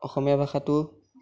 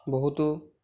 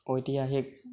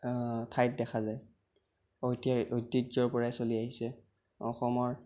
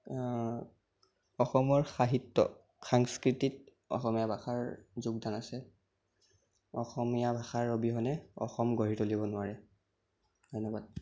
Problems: background sounds at intervals, background conversations at intervals